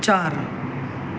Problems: constant background noise